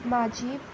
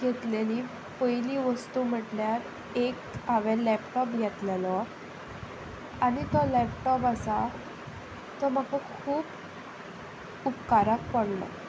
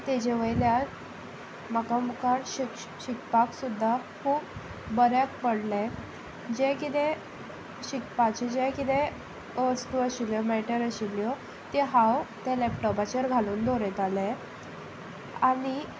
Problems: background sounds at intervals